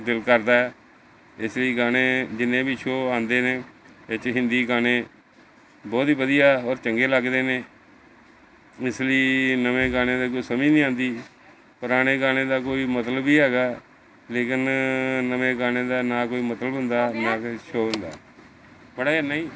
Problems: background conversations at intervals